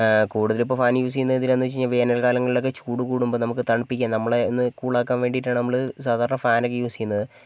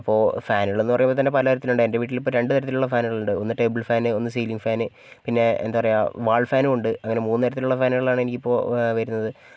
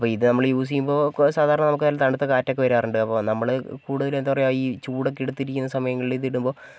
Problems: none marked